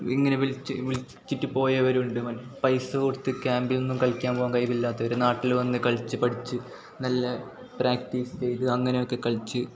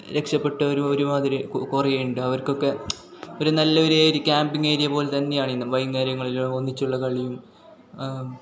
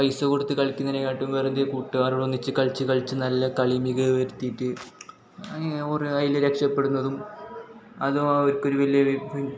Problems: none marked